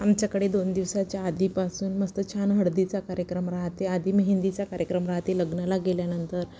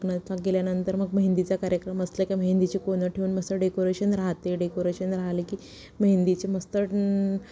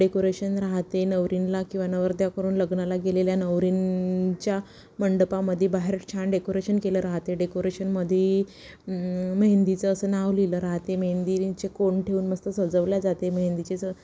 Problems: background sounds at intervals